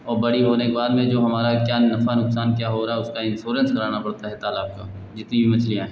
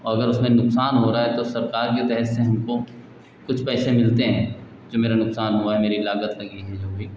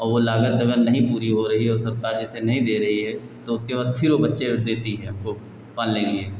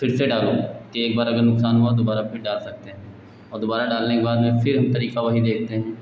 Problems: none marked